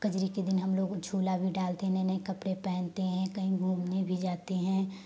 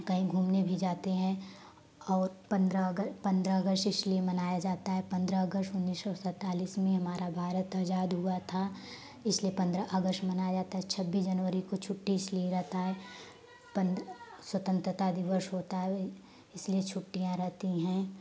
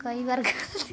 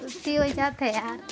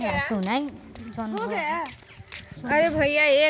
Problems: constant background noise